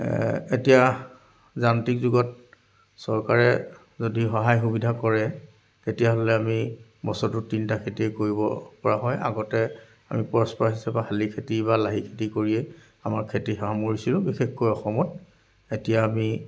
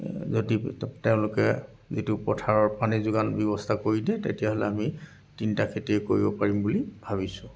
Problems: background sounds at intervals, background conversations at intervals